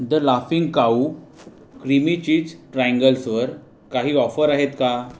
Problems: none marked